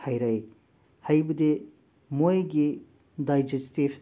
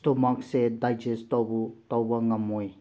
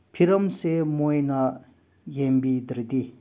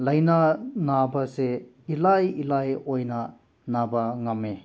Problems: background sounds at intervals